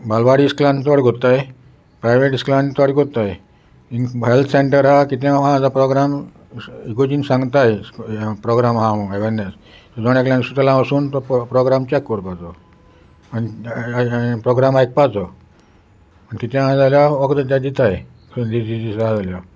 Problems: constant background noise, background conversations at intervals